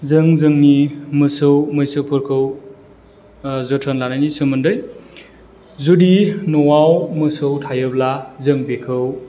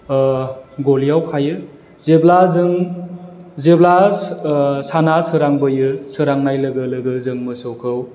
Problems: constant background noise